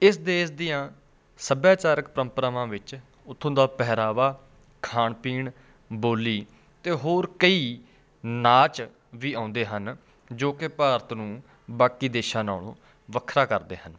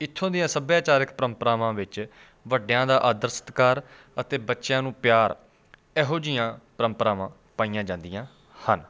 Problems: constant background noise